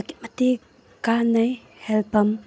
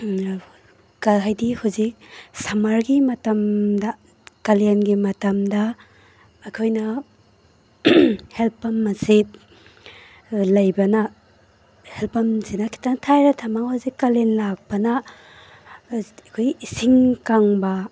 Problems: none marked